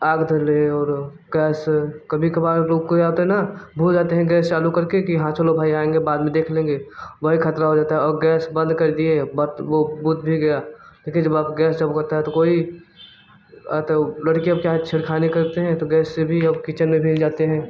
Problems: none marked